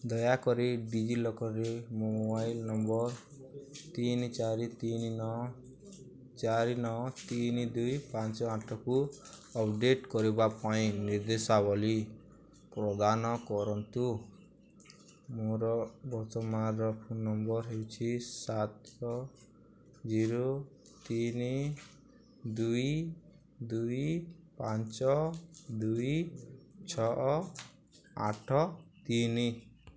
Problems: constant background noise